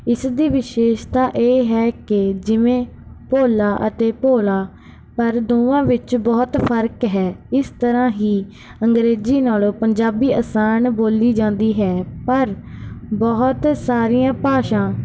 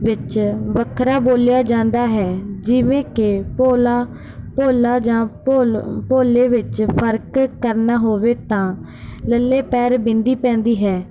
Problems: background sounds at intervals